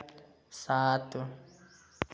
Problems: none marked